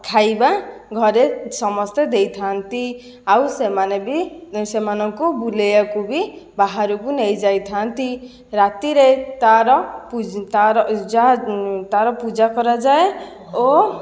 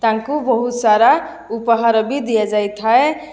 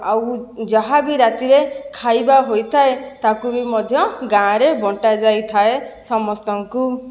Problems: none marked